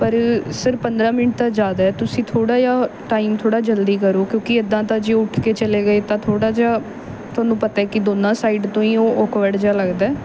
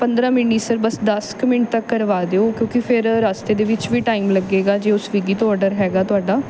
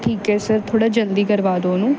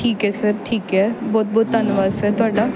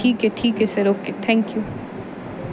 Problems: background sounds at intervals